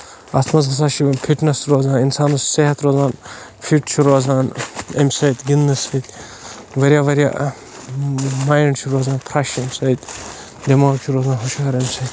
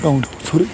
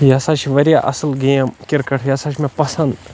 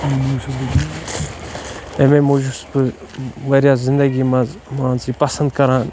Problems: constant background noise